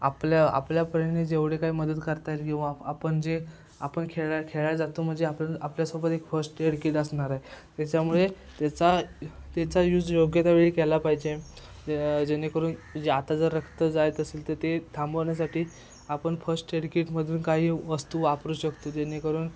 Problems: constant background noise, background conversations at intervals